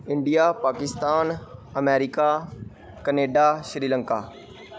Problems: none marked